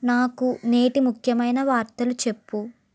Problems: none marked